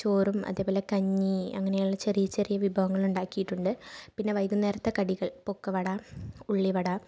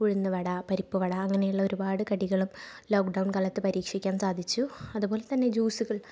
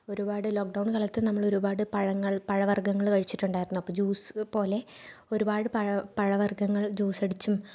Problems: none marked